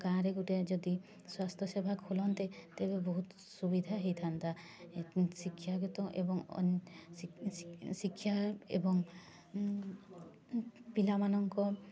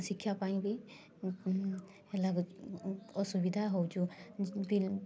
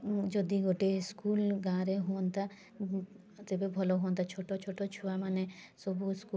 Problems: constant background noise, continuous background conversations